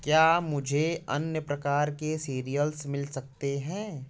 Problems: constant background noise